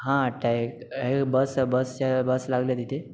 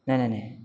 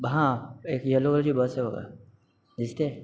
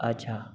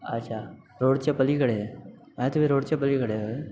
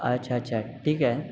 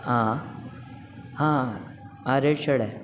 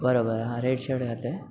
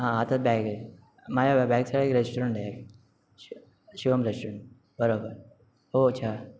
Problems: none marked